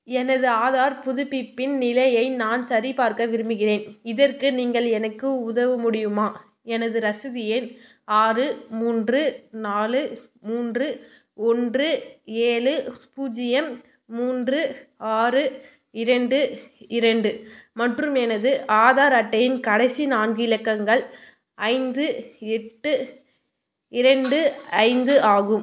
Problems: constant background noise